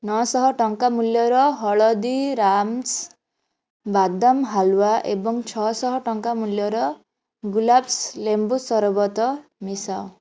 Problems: background sounds at intervals